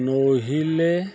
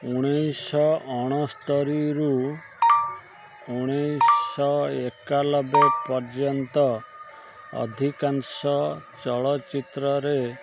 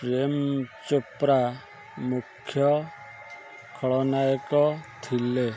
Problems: constant background noise